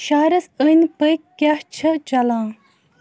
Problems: constant background noise